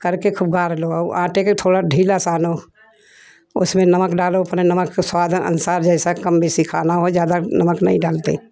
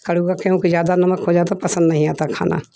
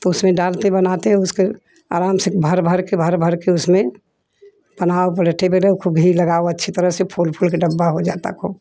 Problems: background conversations at intervals